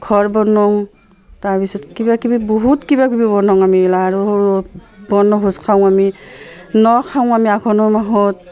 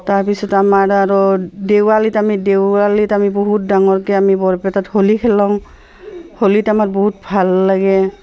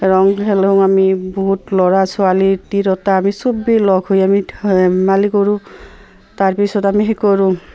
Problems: constant background noise, background conversations at intervals